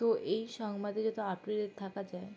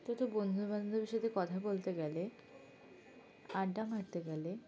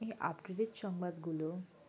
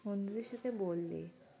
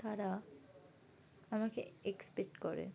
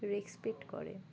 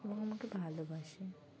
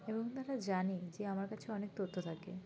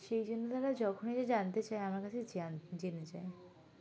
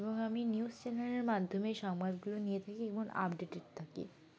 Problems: constant background noise